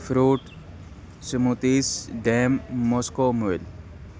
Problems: constant background noise